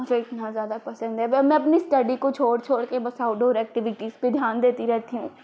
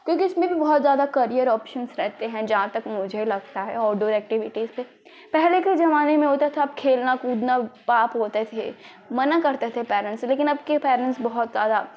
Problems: constant background noise